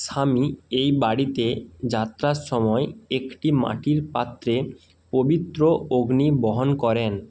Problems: constant background noise